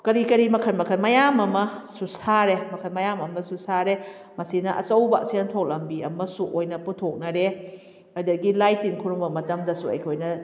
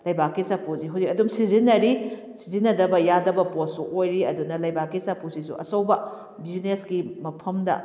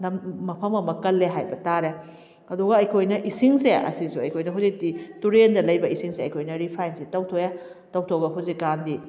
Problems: none marked